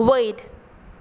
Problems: background sounds at intervals